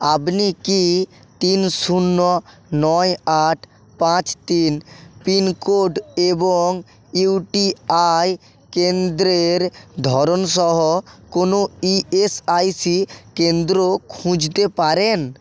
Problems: constant background noise